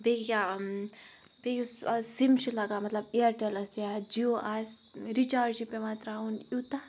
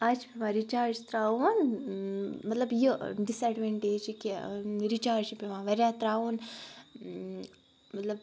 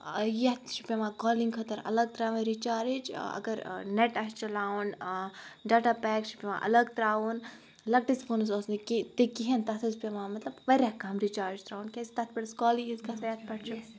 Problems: background sounds at intervals